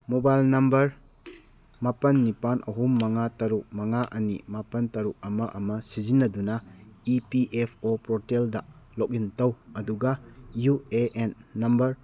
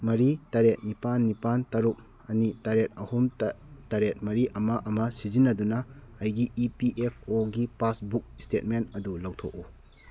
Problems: none marked